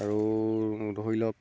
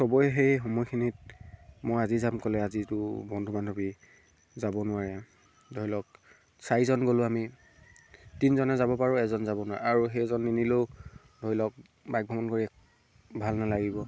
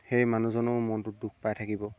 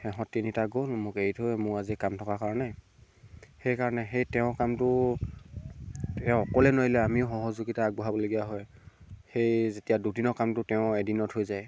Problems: none marked